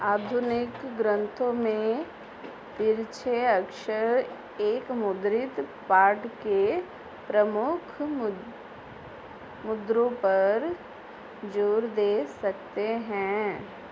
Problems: none marked